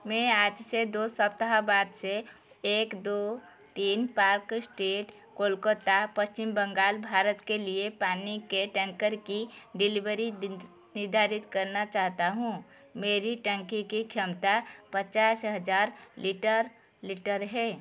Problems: none marked